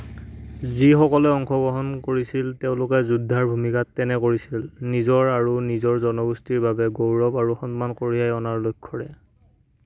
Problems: constant background noise